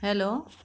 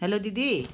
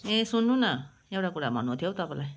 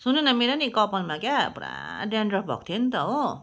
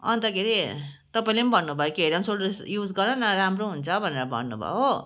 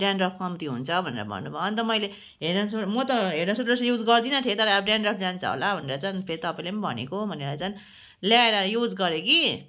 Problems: background sounds at intervals